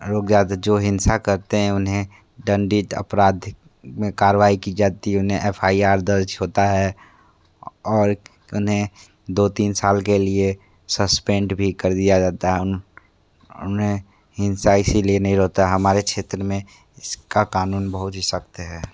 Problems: none marked